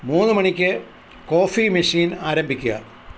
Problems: constant background noise